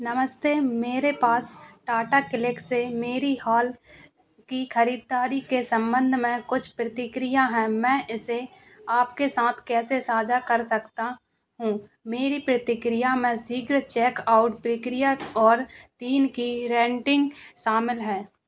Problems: constant background noise